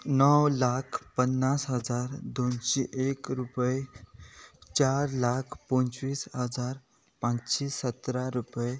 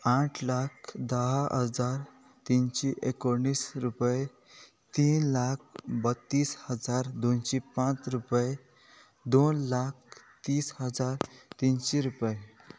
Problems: background sounds at intervals